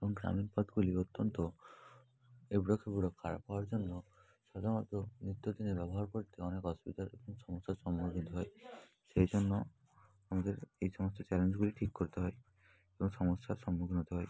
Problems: background sounds at intervals, continuous background conversations